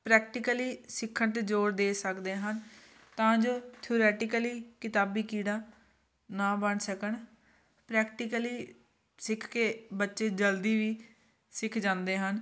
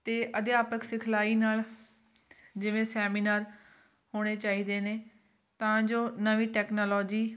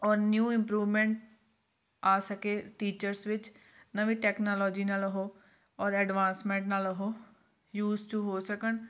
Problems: constant background noise